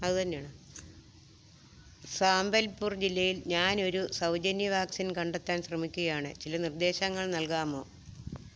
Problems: none marked